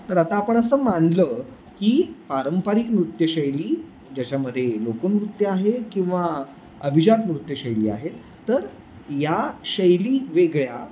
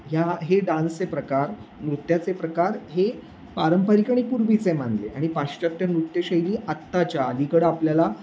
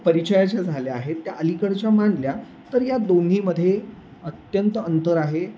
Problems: constant background noise